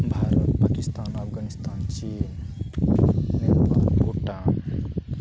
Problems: background sounds at intervals